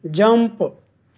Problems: constant background noise